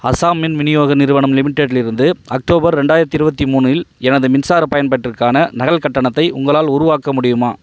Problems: background sounds at intervals